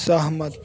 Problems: constant background noise